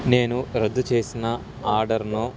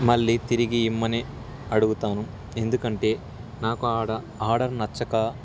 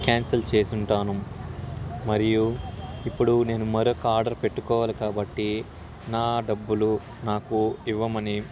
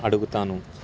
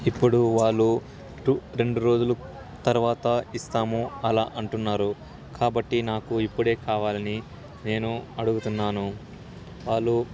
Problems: constant background noise